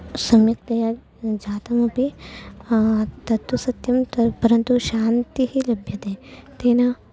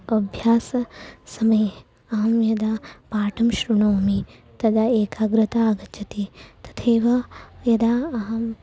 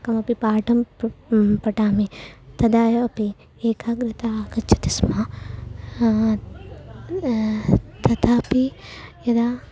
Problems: background sounds at intervals